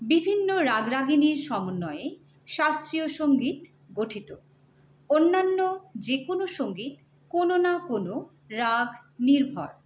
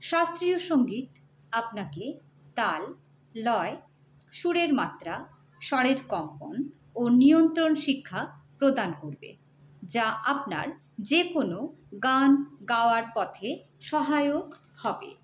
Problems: none marked